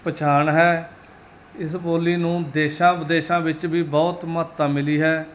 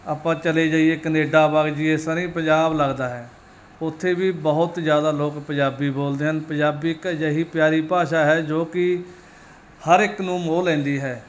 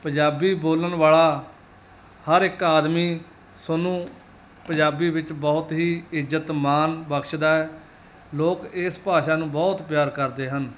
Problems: none marked